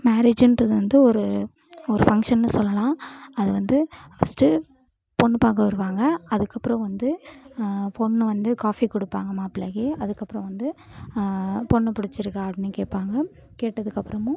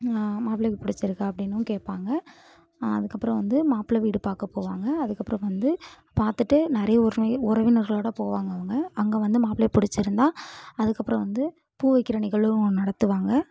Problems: background conversations at intervals